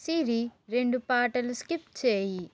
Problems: constant background noise